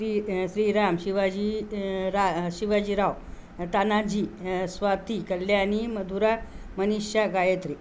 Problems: none marked